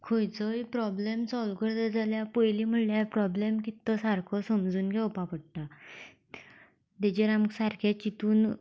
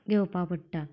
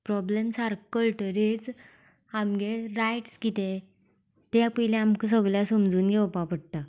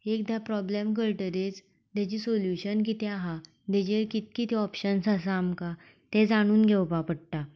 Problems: none marked